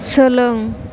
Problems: constant background noise